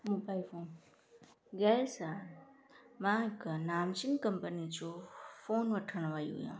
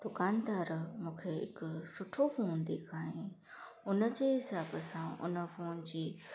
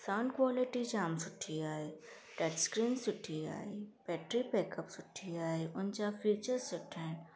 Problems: constant background noise, echo